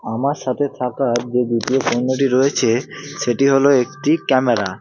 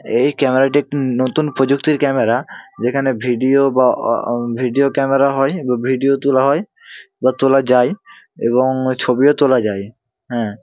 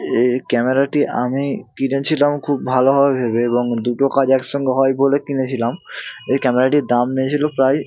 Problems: background sounds at intervals, continuous background conversations